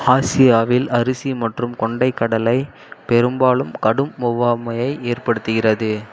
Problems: background sounds at intervals